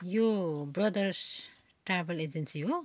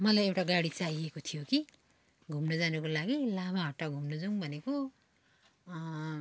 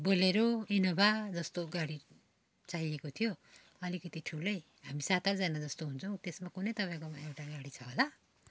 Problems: none marked